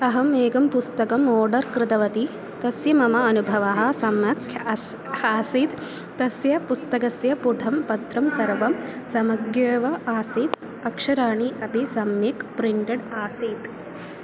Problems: constant background noise